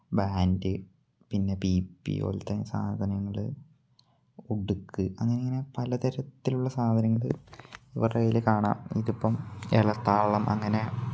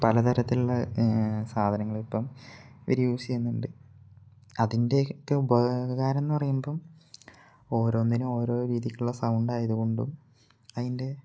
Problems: low volume